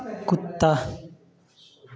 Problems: background conversations at intervals